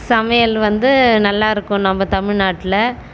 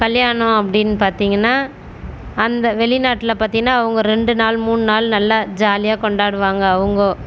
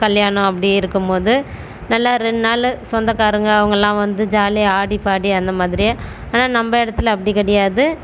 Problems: none marked